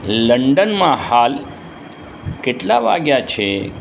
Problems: constant background noise